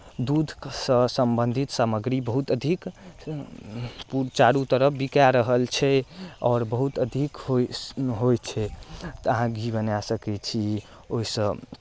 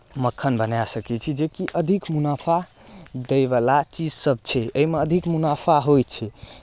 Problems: none marked